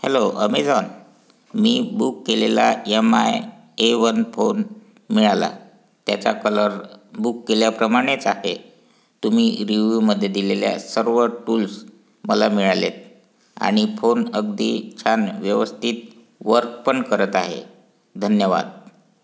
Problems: constant background noise